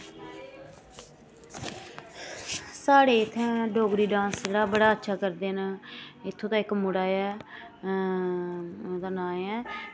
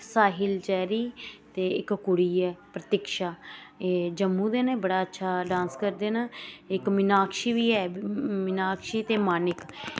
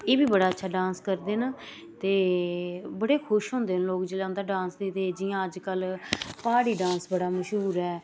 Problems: none marked